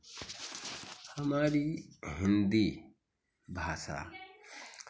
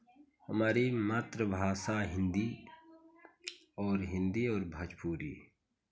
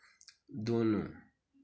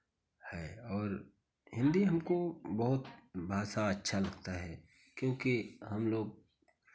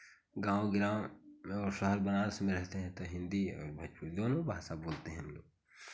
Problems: constant background noise, background conversations at intervals